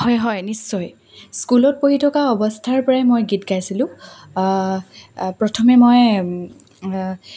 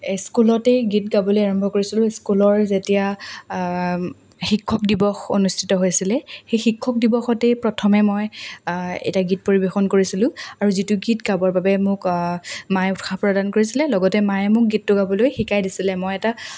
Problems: none marked